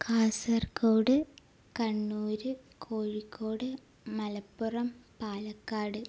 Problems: low volume